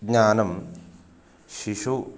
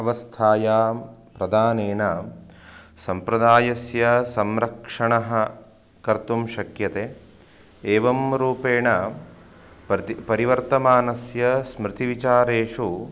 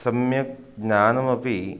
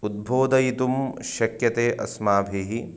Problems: background sounds at intervals